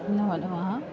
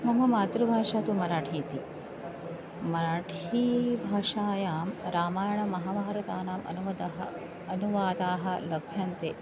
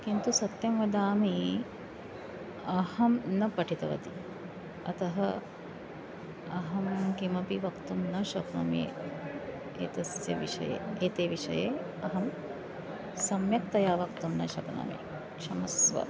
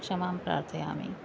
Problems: constant background noise, continuous background conversations